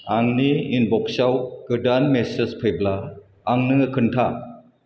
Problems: constant background noise